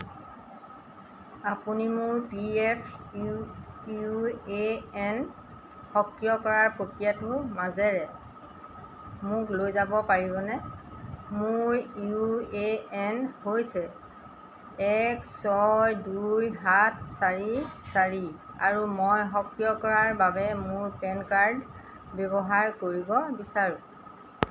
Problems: constant background noise